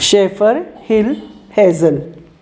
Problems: none marked